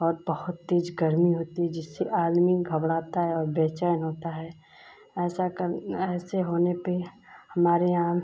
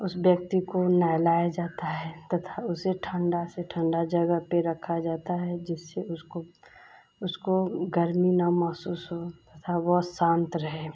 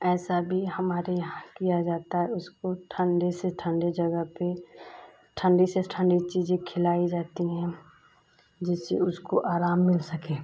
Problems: constant background noise